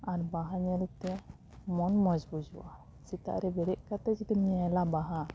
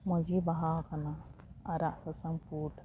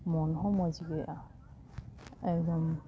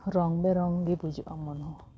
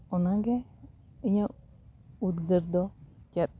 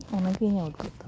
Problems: background sounds at intervals, background conversations at intervals